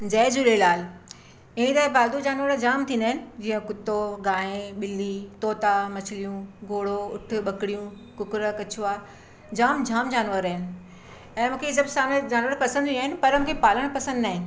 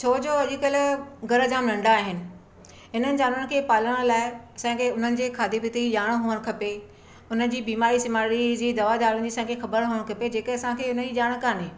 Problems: none marked